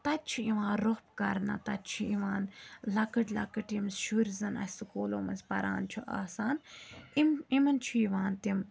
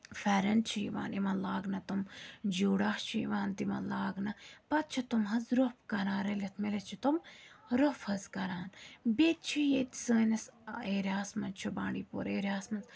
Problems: background conversations at intervals